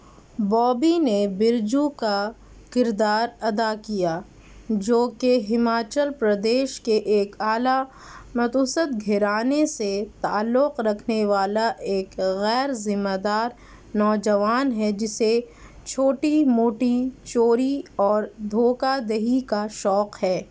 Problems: none marked